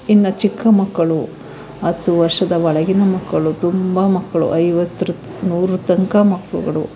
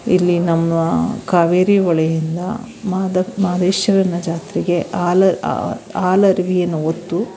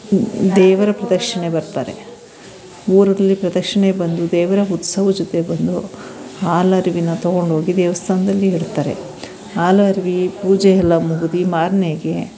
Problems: background sounds at intervals, background conversations at intervals